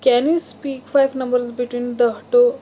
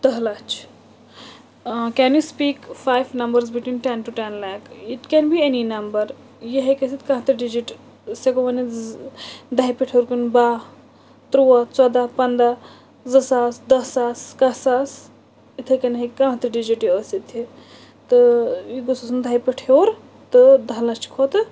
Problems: constant background noise